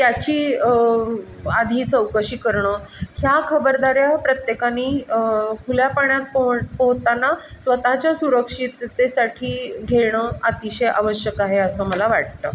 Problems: none marked